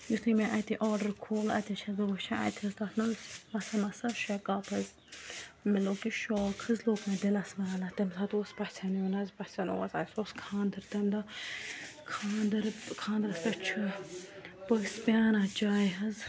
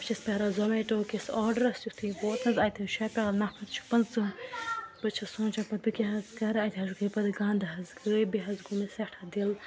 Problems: constant background noise, background conversations at intervals